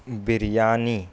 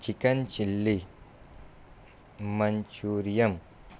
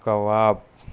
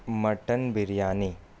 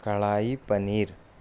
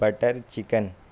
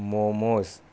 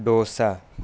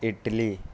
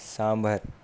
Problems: constant background noise